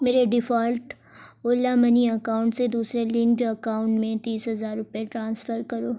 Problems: none marked